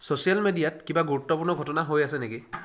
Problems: background sounds at intervals